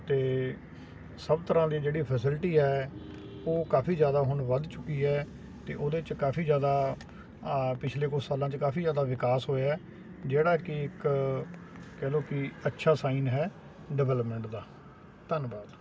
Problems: none marked